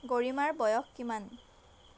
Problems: none marked